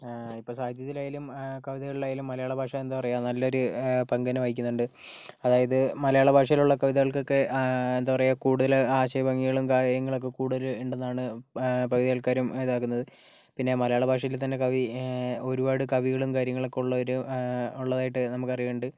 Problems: none marked